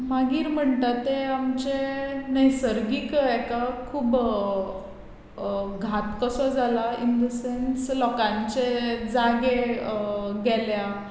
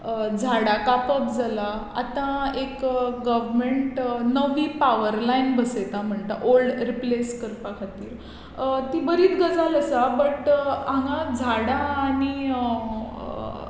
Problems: none marked